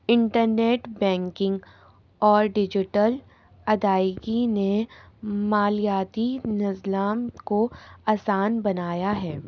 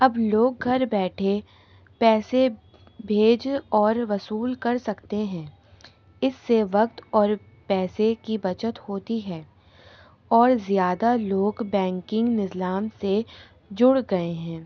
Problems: constant background noise